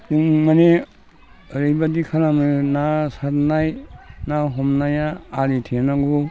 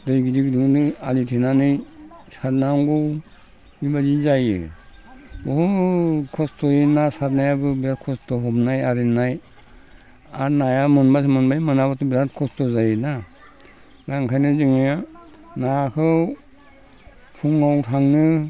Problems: constant background noise